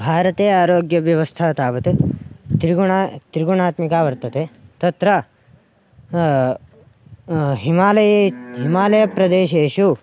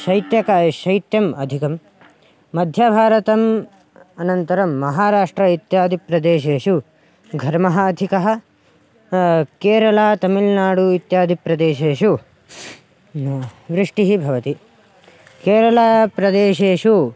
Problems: background sounds at intervals